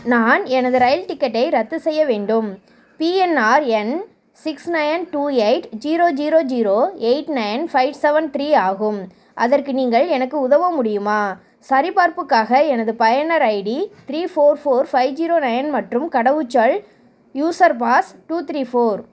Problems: none marked